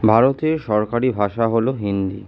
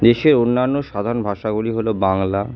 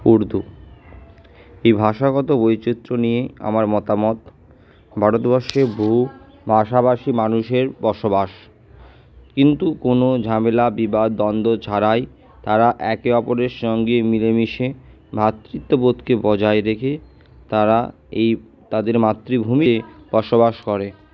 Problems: none marked